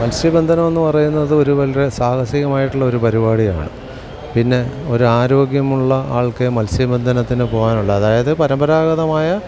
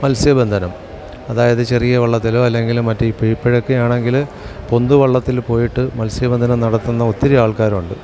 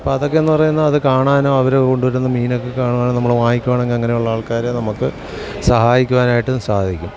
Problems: background sounds at intervals